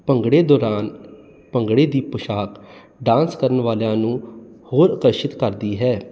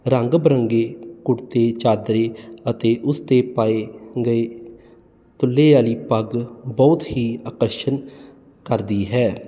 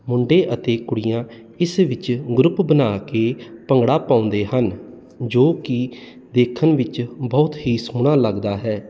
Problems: none marked